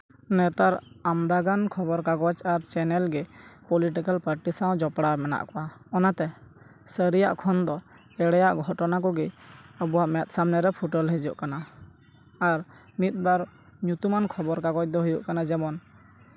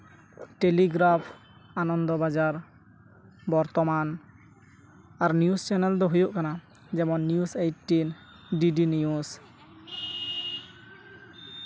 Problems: background sounds at intervals, background conversations at intervals